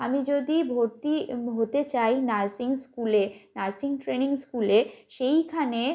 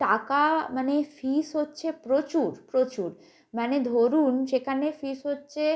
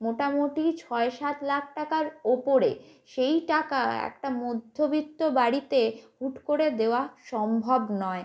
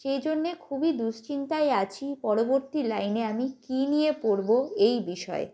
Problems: background sounds at intervals